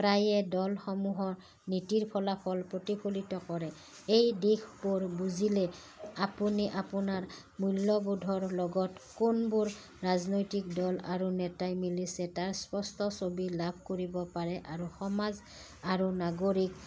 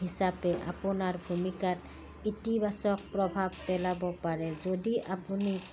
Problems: background sounds at intervals